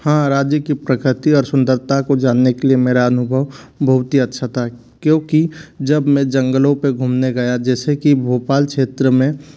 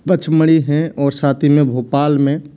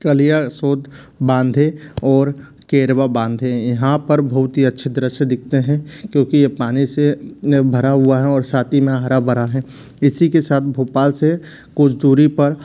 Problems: none marked